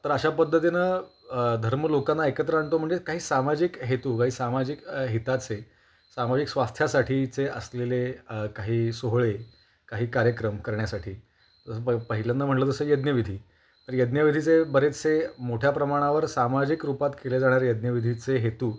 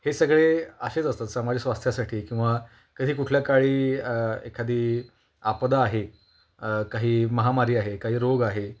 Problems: constant background noise, background conversations at intervals